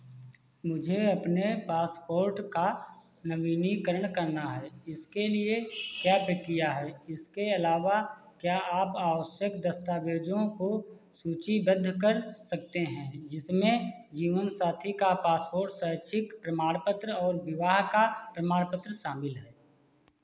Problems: constant background noise